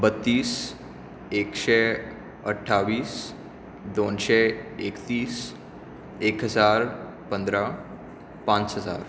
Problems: none marked